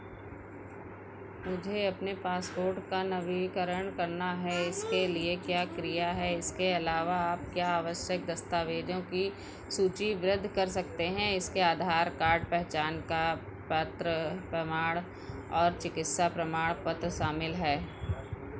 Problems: background sounds at intervals